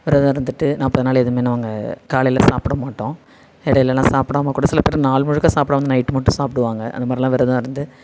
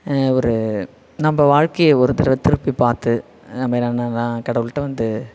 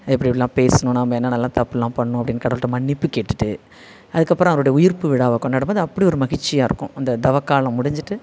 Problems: none marked